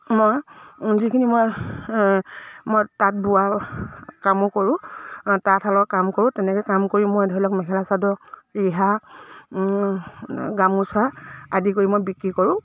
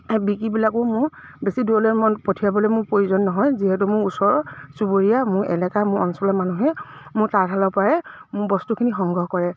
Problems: low volume